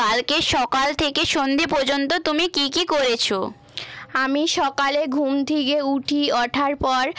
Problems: none marked